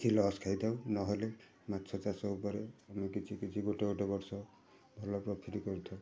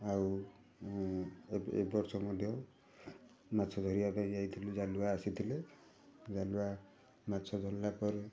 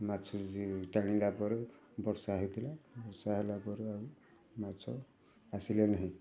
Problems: constant background noise